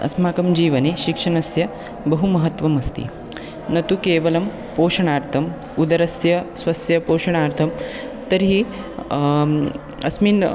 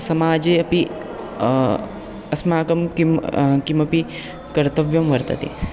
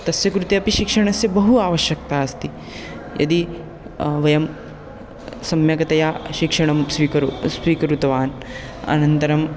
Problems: constant background noise